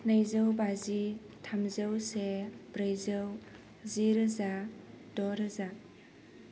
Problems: constant background noise